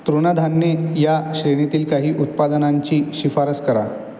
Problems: background sounds at intervals